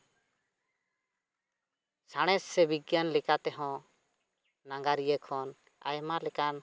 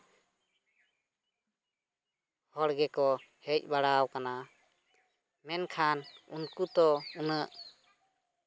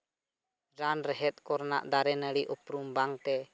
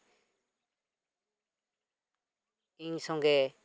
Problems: none marked